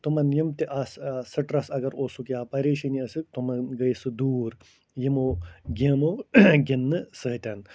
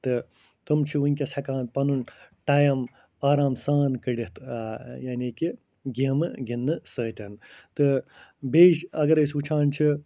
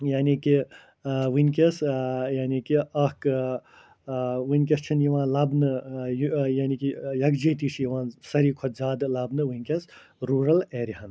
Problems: none marked